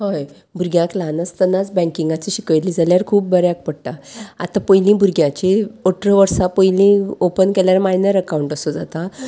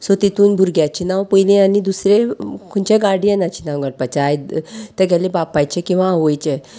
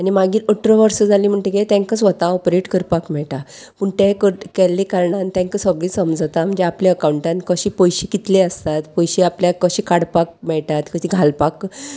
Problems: none marked